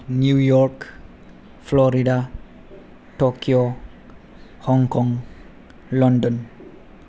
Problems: low volume